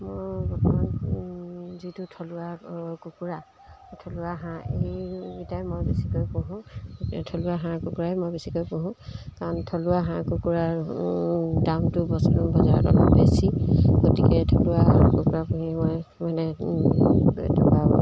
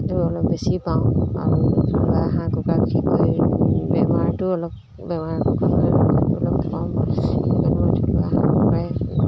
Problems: constant background noise